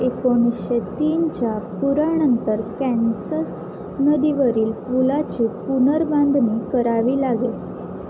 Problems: constant background noise